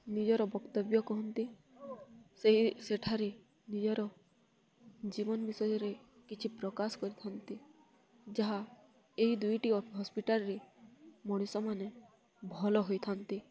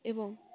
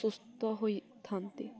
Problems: constant background noise, continuous background conversations